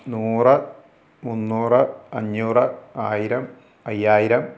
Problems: none marked